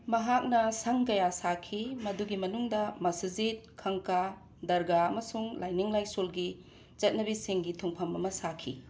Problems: background sounds at intervals